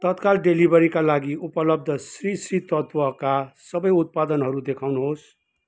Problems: none marked